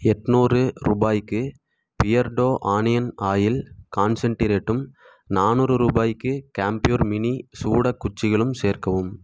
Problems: none marked